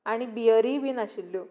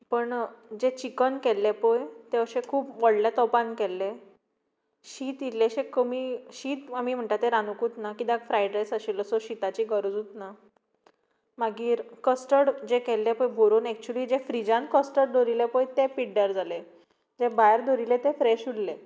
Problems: background sounds at intervals